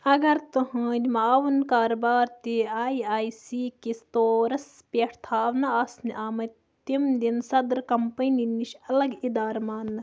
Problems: background sounds at intervals